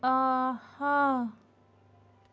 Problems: none marked